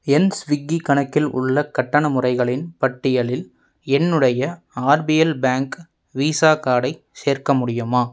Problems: none marked